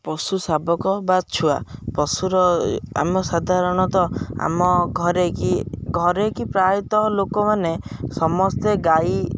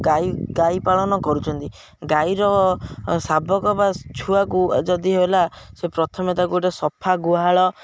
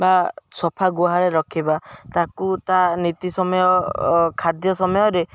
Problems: background sounds at intervals